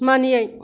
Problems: background sounds at intervals